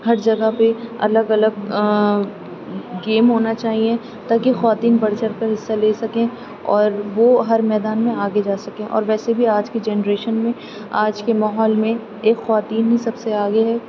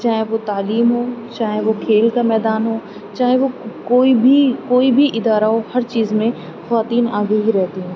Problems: constant background noise, low volume